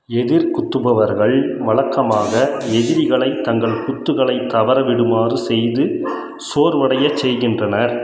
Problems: constant background noise